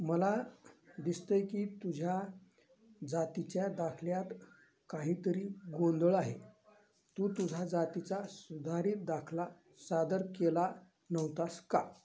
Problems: none marked